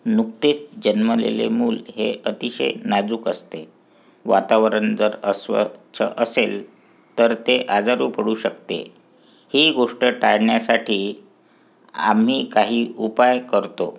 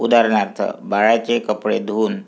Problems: background sounds at intervals, background conversations at intervals